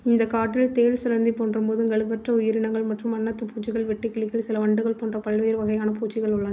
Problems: none marked